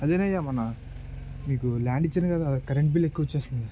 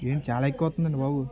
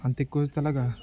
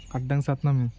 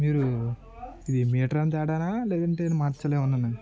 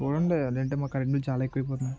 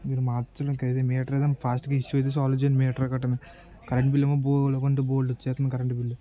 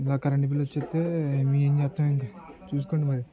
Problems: low volume